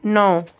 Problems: none marked